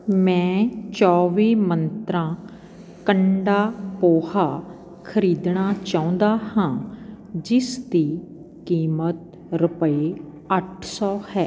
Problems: constant background noise